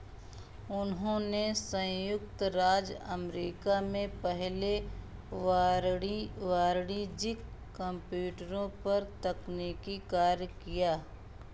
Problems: background sounds at intervals